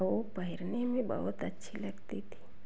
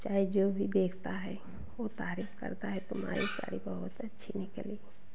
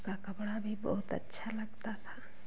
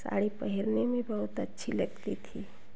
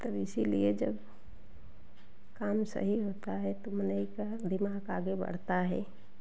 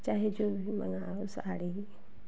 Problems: background sounds at intervals, echo